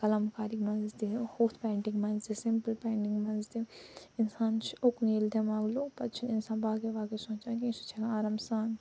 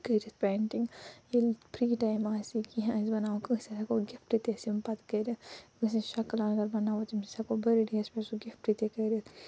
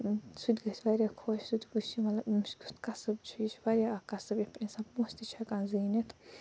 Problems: low volume